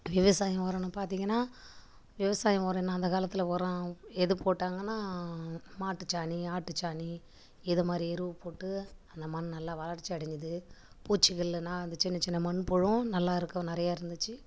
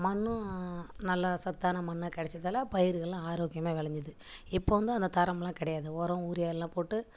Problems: background sounds at intervals